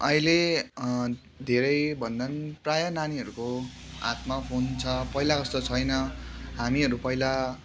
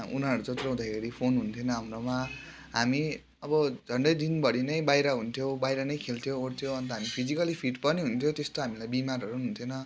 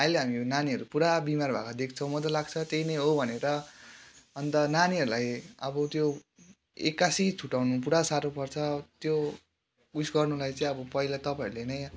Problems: background sounds at intervals